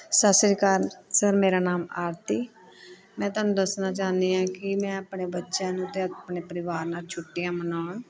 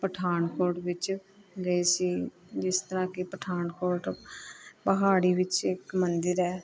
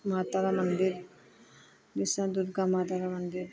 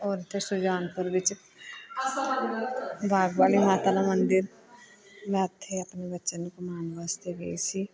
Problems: continuous background conversations